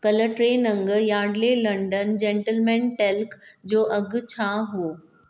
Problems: none marked